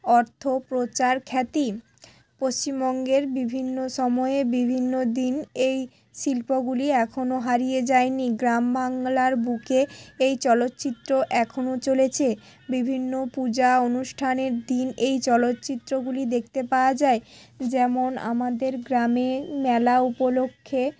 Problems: none marked